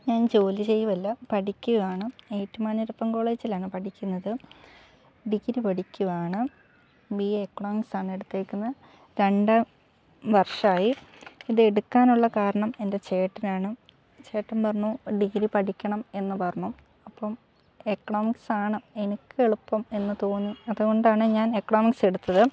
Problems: low volume